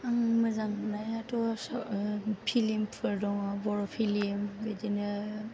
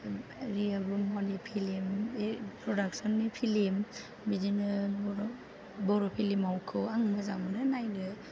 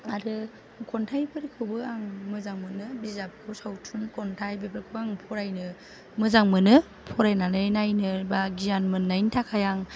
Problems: none marked